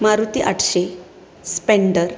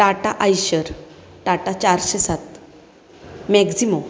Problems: constant background noise